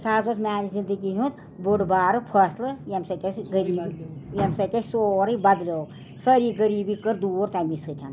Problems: constant background noise, background conversations at intervals